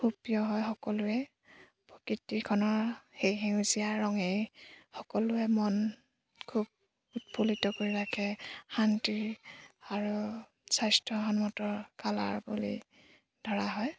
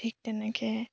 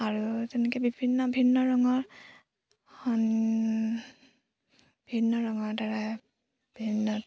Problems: background sounds at intervals